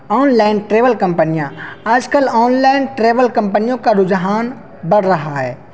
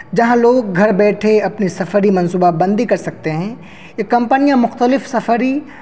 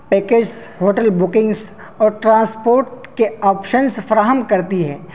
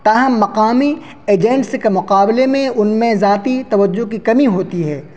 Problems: constant background noise